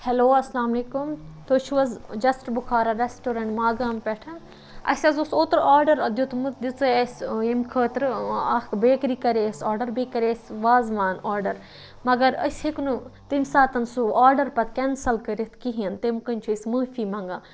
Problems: none marked